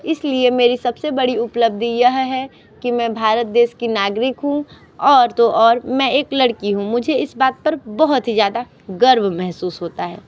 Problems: constant background noise, continuous background conversations